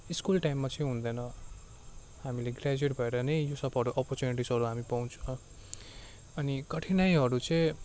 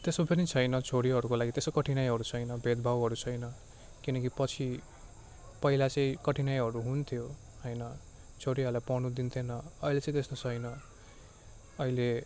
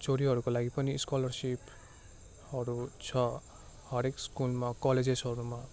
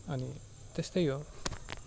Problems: none marked